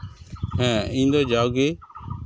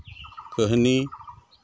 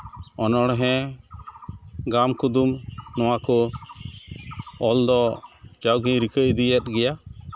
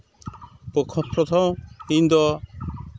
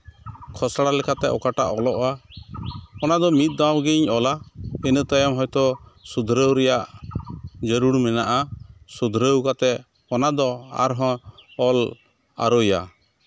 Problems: constant background noise